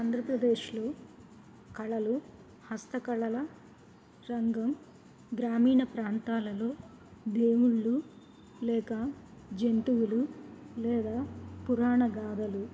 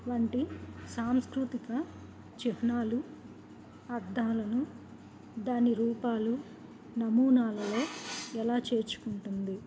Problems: background sounds at intervals, low volume